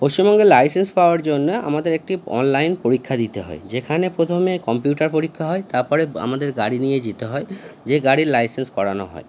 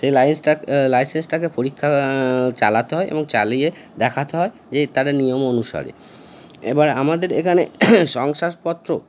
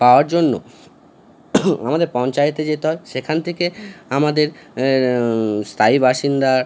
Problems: constant background noise